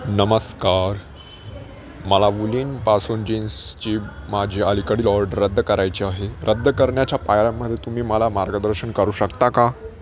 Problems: constant background noise, continuous background conversations